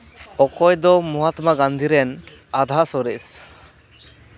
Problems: constant background noise, background conversations at intervals